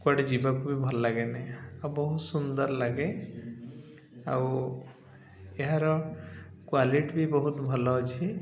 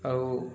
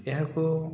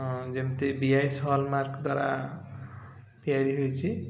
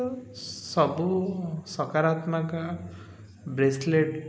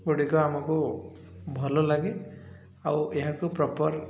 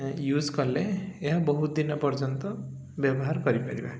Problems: none marked